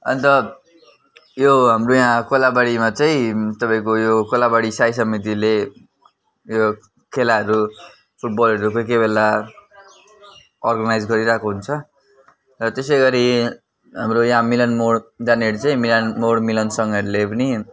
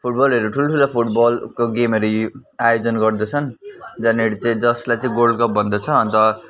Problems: none marked